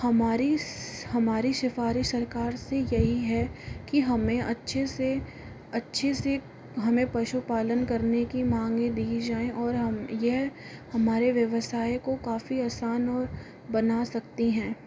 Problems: constant background noise